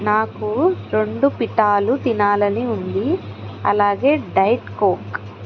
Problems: none marked